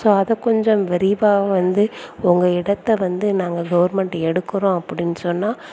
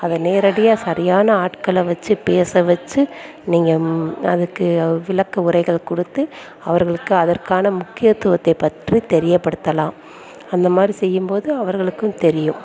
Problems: background conversations at intervals